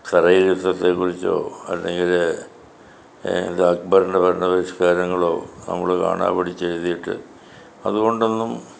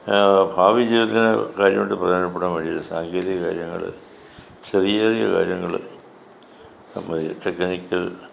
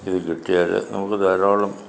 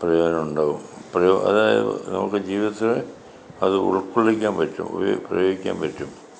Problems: continuous background conversations